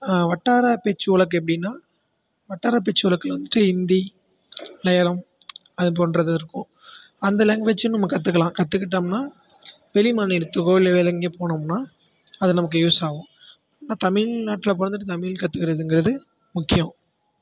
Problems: background sounds at intervals